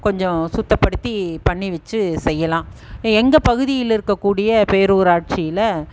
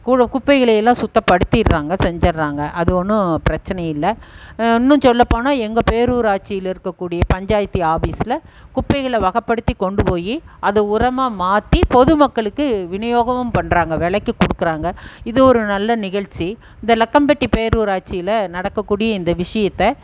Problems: background sounds at intervals